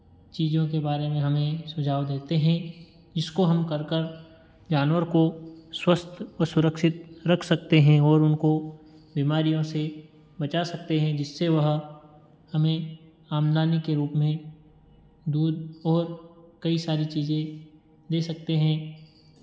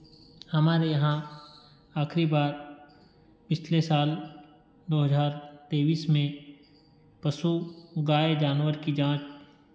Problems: background sounds at intervals